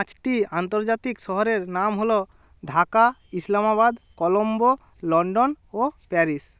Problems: constant background noise